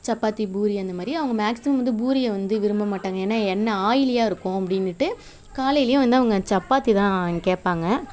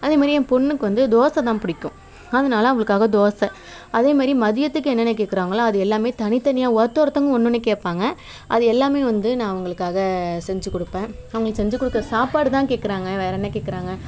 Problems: constant background noise